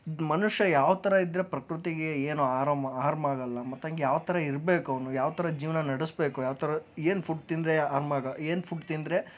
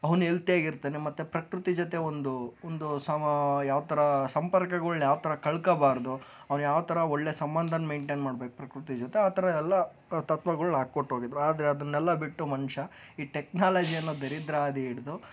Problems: background conversations at intervals